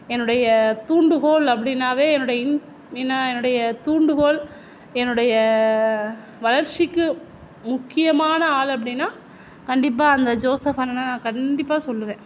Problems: none marked